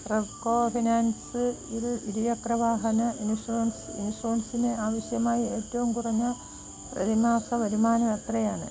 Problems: background sounds at intervals, low volume